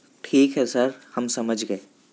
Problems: background sounds at intervals